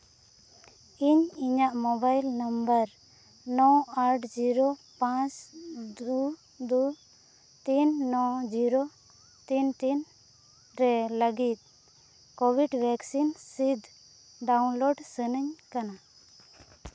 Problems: background sounds at intervals, low volume